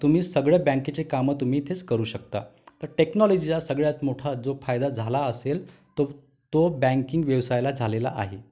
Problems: background sounds at intervals